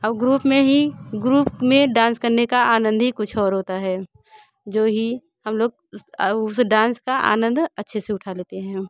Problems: none marked